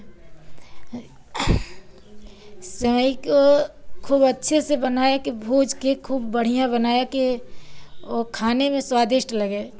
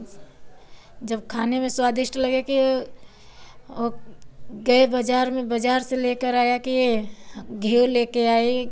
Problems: none marked